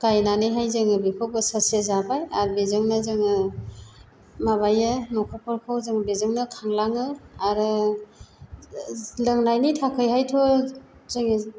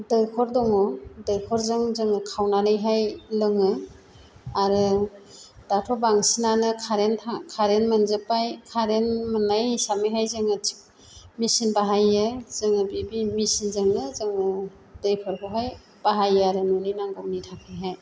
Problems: constant background noise